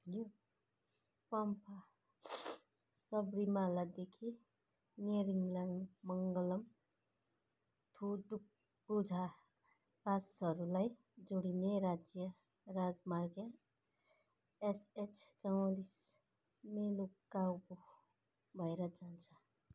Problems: low volume